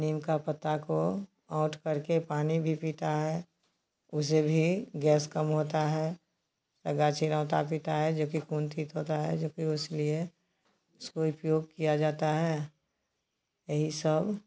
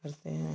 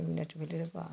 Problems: constant background noise